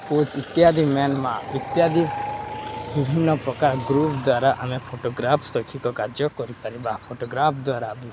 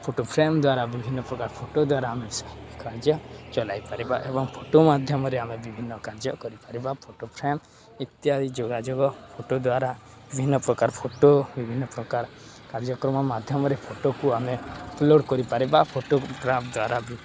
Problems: constant background noise, continuous background conversations